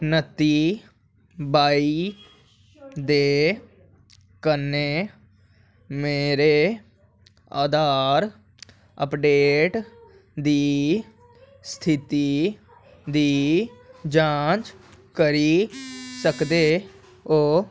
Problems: none marked